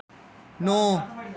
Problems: background sounds at intervals, echo